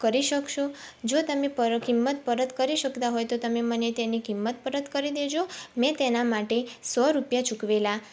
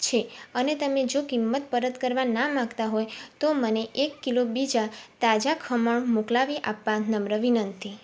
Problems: background sounds at intervals